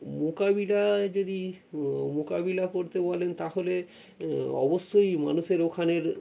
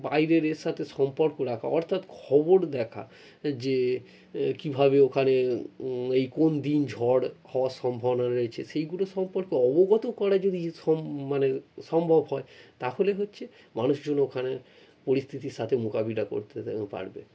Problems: none marked